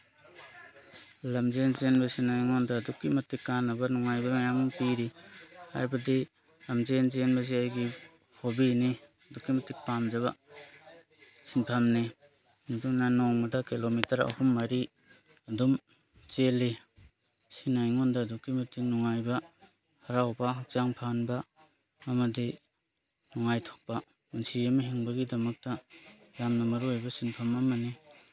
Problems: none marked